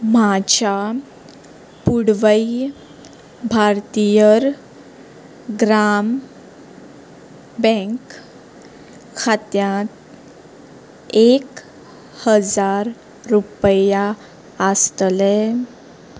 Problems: constant background noise